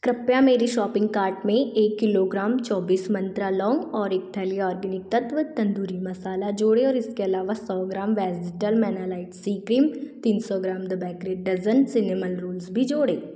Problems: background sounds at intervals